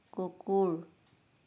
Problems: low volume